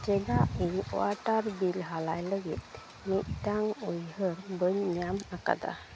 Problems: none marked